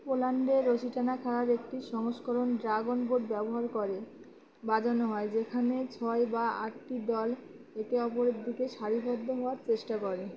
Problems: constant background noise, continuous background conversations